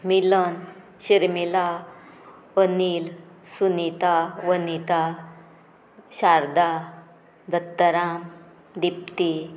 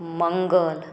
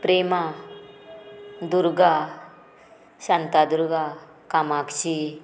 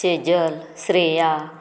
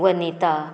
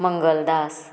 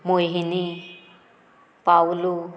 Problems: background sounds at intervals, background conversations at intervals